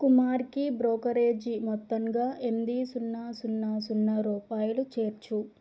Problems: low volume